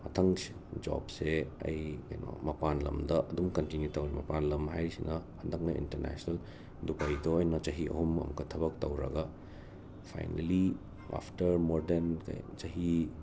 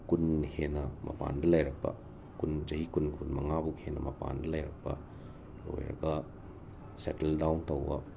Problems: constant background noise, low volume